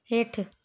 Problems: none marked